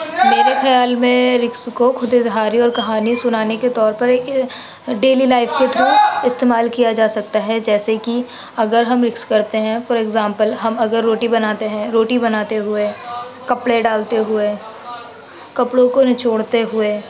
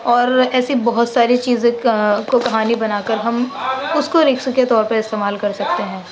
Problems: constant background noise